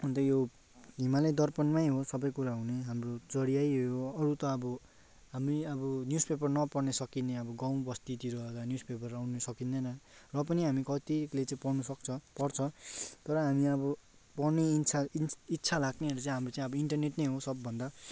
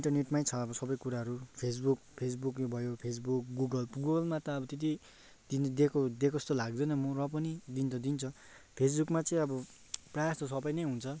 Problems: none marked